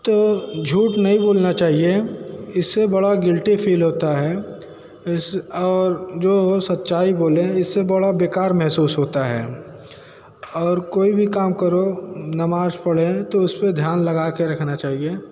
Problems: constant background noise